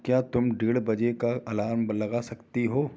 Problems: background sounds at intervals